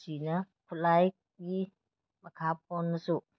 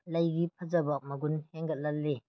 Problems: none marked